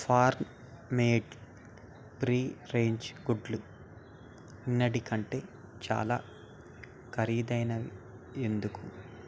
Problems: none marked